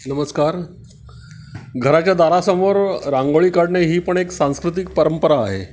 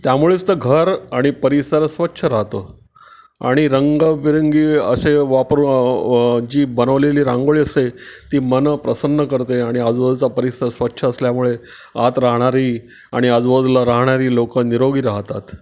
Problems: background sounds at intervals